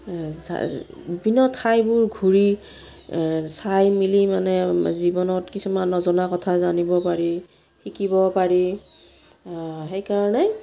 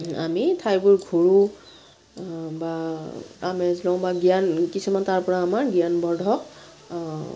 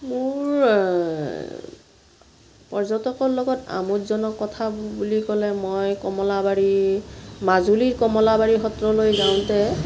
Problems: background sounds at intervals